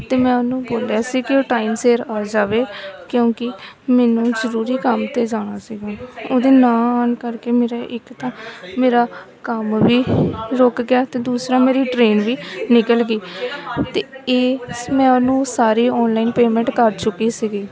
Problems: continuous background conversations